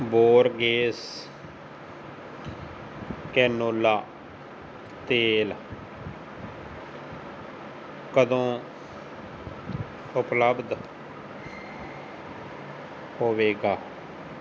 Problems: constant background noise